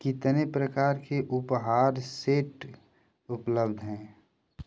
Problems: none marked